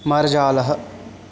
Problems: none marked